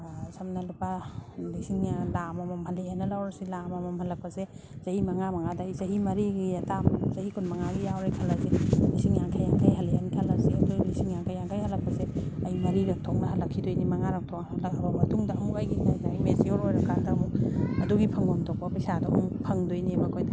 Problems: background sounds at intervals